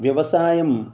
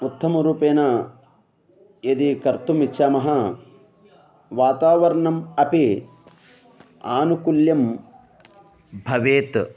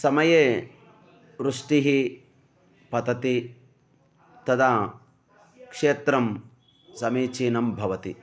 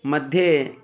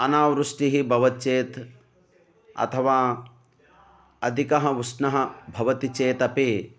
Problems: background sounds at intervals